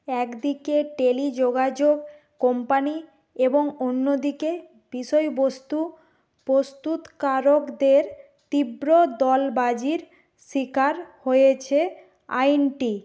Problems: none marked